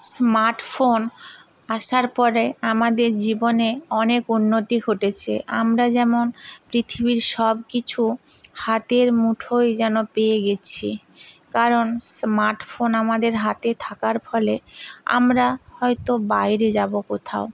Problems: constant background noise